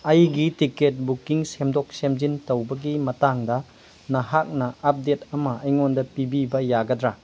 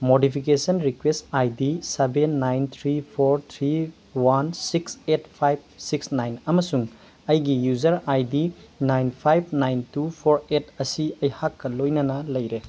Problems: background sounds at intervals